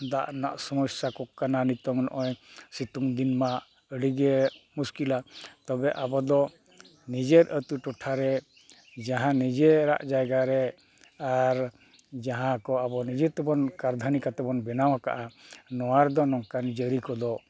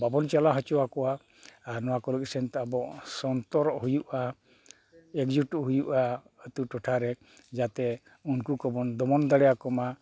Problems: none marked